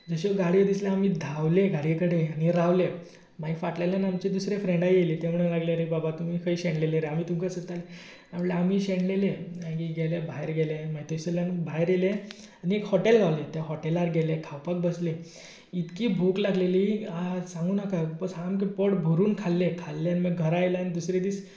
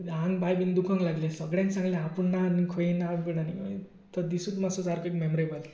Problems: background sounds at intervals